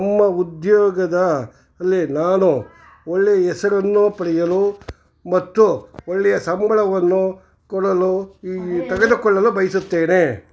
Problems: background sounds at intervals, background conversations at intervals